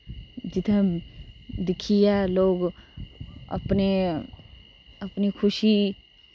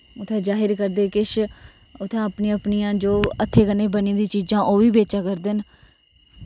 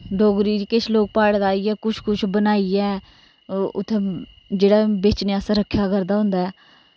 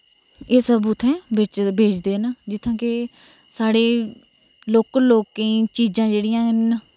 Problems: none marked